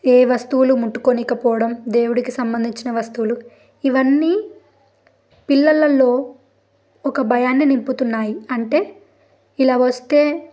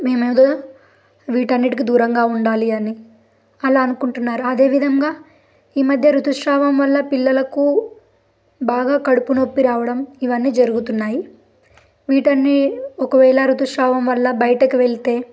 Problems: background sounds at intervals